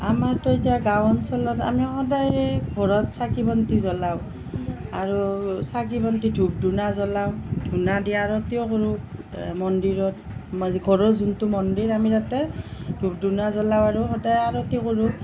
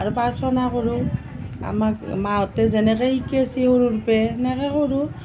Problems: none marked